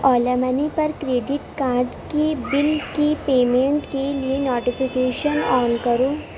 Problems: background sounds at intervals